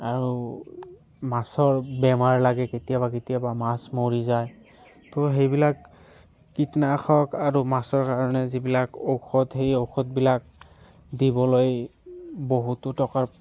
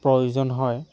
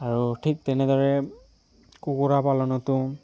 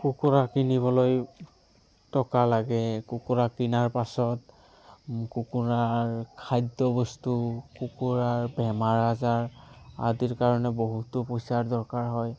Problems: background sounds at intervals, background conversations at intervals